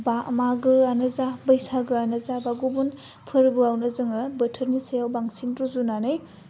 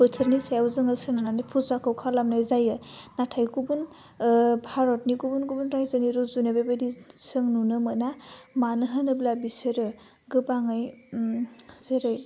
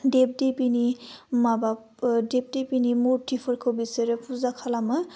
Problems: constant background noise